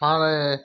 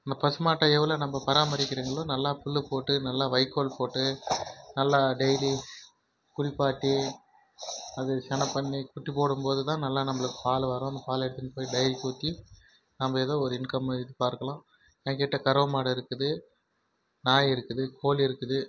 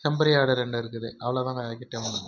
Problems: background sounds at intervals